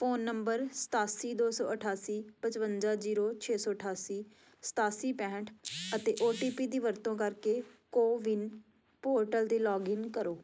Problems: constant background noise